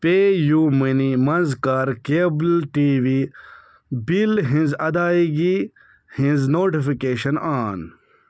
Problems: none marked